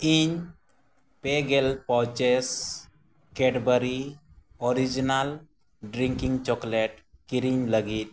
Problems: constant background noise